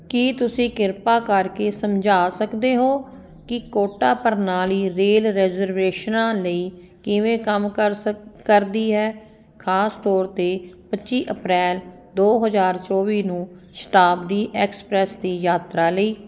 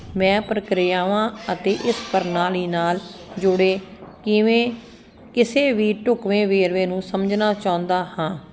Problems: none marked